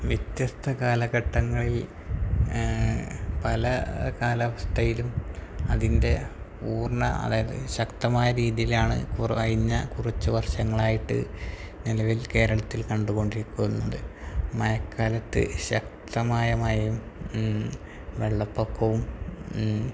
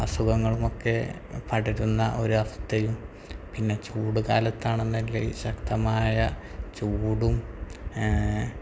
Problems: constant background noise, low volume